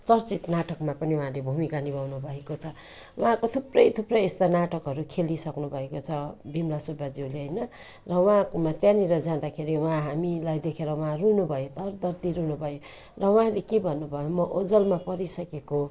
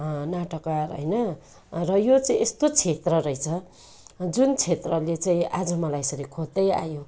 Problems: constant background noise